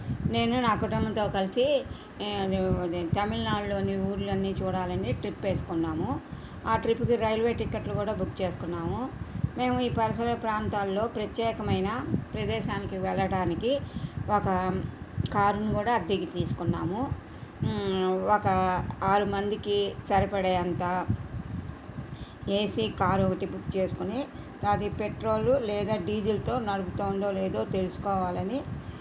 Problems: constant background noise